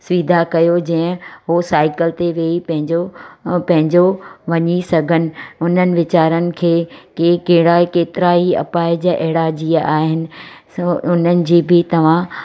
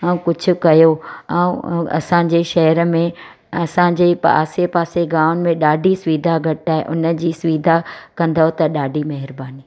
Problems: constant background noise